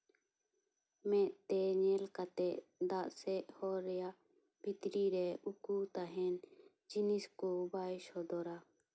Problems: none marked